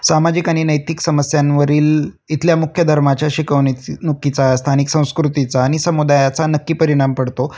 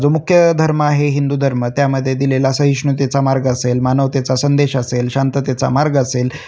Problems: none marked